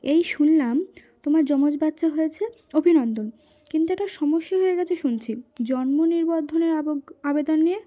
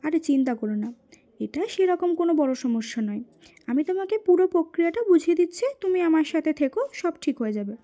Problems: background sounds at intervals